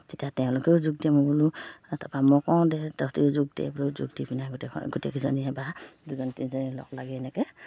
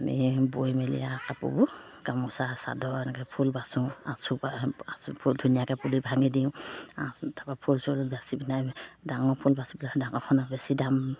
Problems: low volume